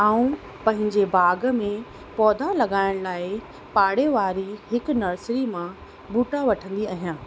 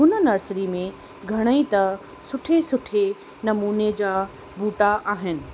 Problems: constant background noise